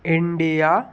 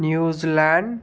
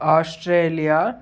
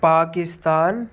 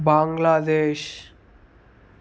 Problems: none marked